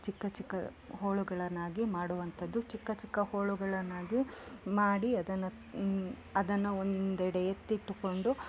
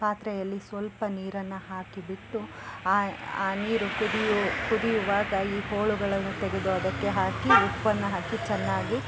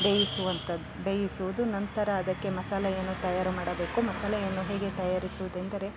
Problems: background sounds at intervals